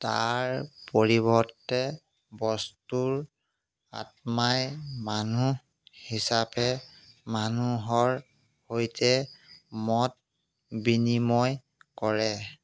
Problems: background sounds at intervals